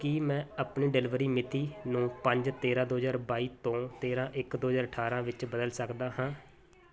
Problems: constant background noise